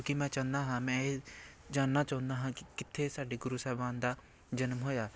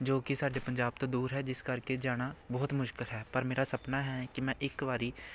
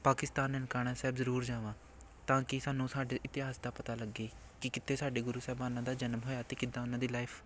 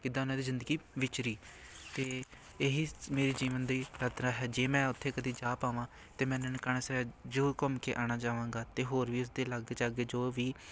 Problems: background sounds at intervals, background conversations at intervals